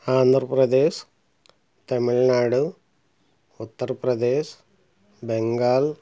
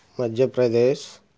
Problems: none marked